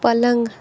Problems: constant background noise